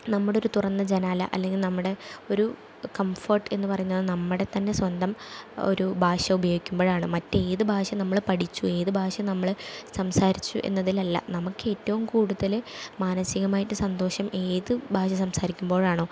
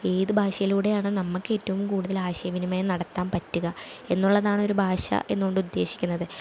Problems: none marked